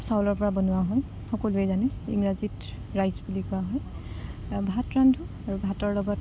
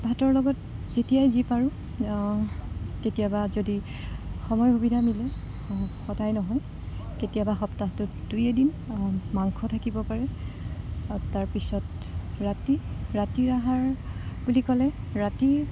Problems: none marked